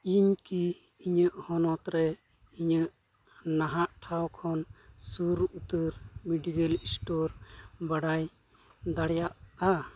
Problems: none marked